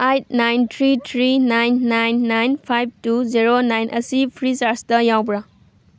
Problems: none marked